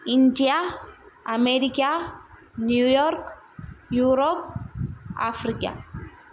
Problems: background sounds at intervals